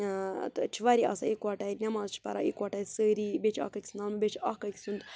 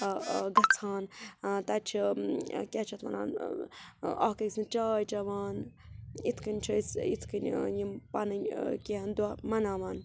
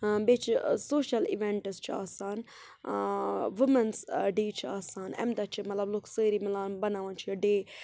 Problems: constant background noise, background conversations at intervals